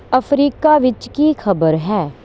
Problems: none marked